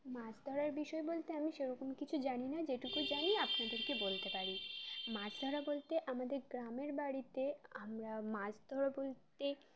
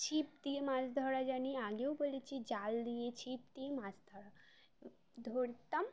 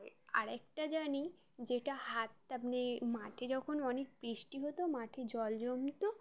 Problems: constant background noise